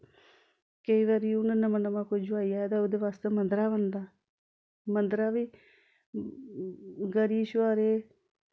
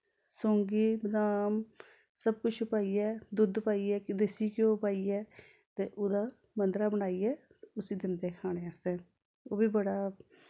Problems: background sounds at intervals